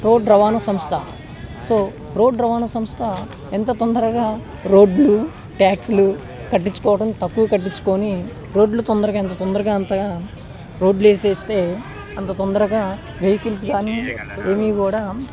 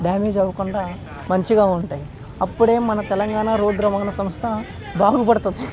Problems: constant background noise